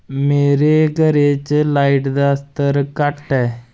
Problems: constant background noise